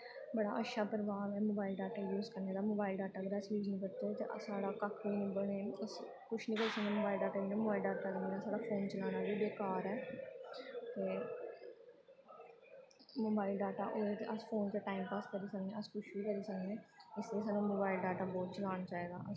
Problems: background sounds at intervals, low volume